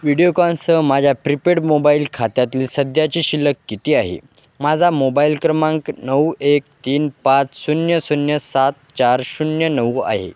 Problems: none marked